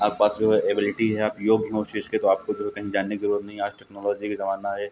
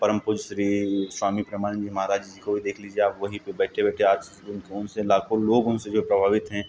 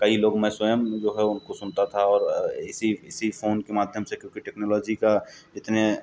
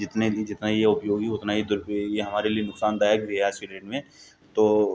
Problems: background sounds at intervals